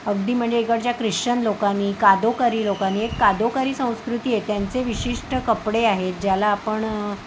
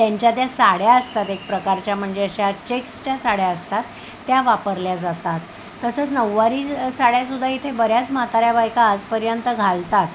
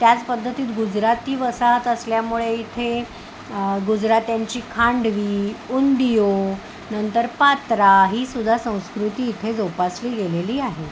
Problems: none marked